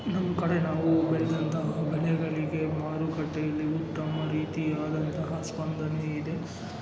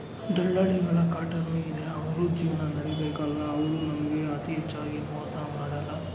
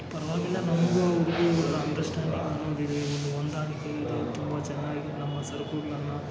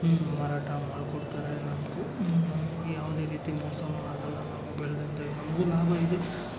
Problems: background sounds at intervals, background conversations at intervals